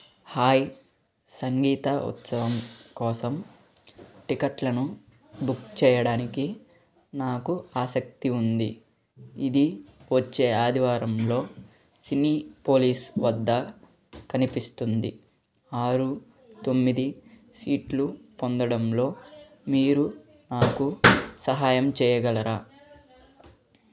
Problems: background sounds at intervals